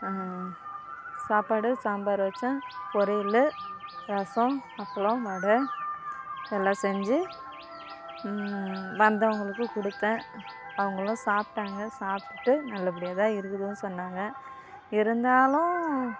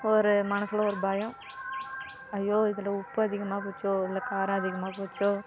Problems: constant background noise